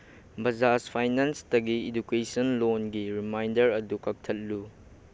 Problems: none marked